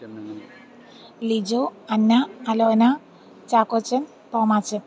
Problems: background sounds at intervals, background conversations at intervals